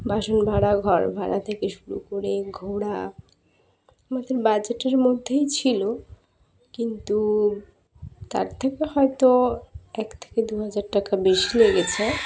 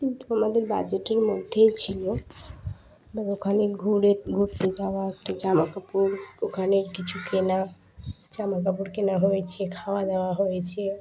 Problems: constant background noise, continuous background conversations